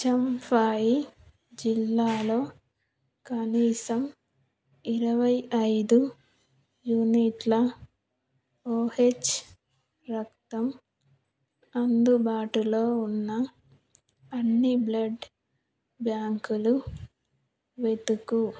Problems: background sounds at intervals